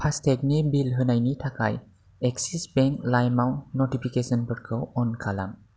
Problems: none marked